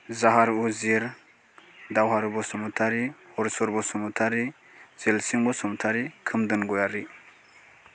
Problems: none marked